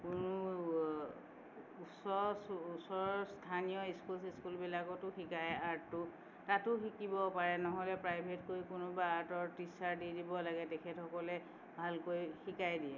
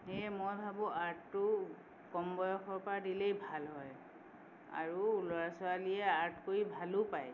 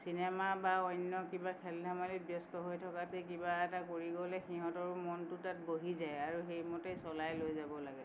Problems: none marked